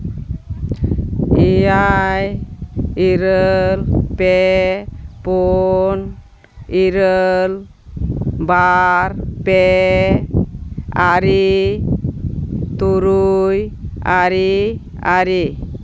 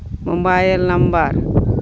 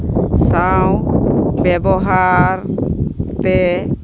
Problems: constant background noise